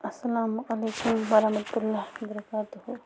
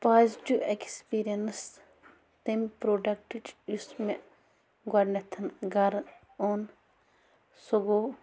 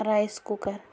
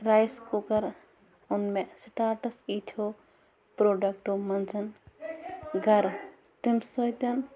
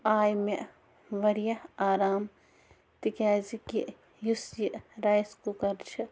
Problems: background sounds at intervals, background conversations at intervals